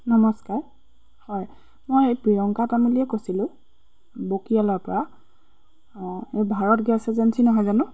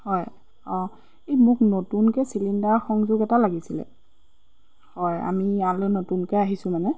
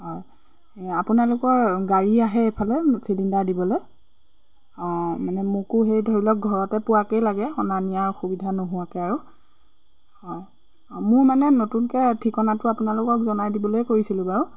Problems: none marked